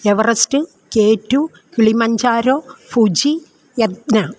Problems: none marked